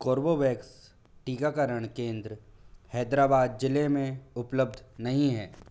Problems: none marked